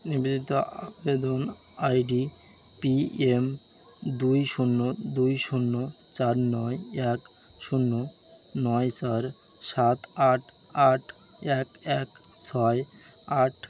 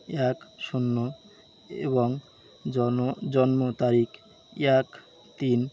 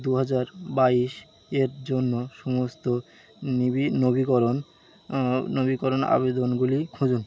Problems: constant background noise